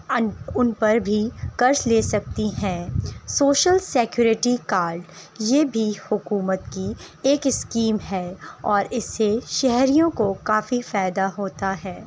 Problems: constant background noise